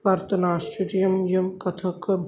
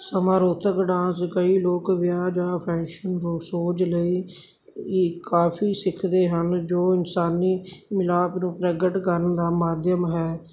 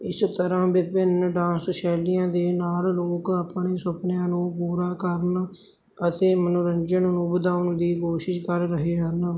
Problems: background sounds at intervals